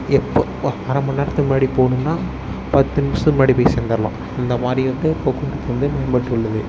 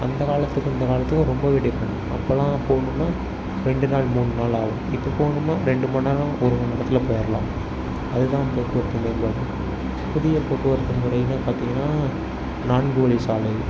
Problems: background sounds at intervals